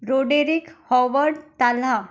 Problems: background sounds at intervals